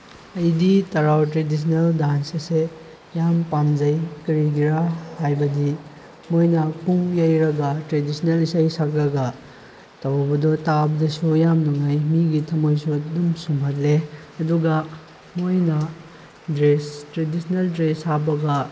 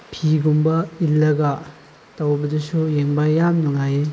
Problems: constant background noise